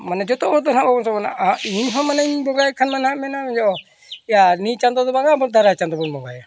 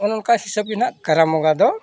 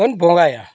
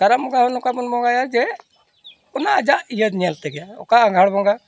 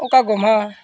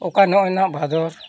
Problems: none marked